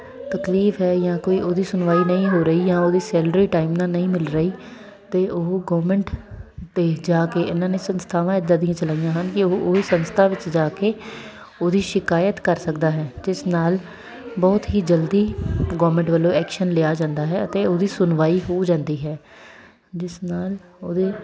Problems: constant background noise, continuous background conversations